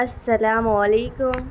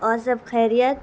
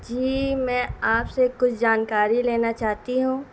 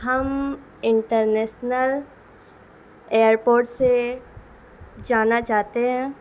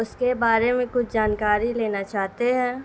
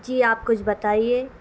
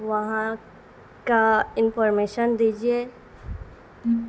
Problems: constant background noise